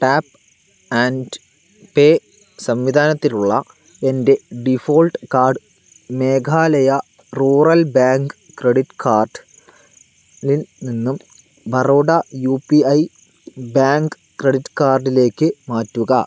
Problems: none marked